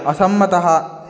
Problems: continuous background conversations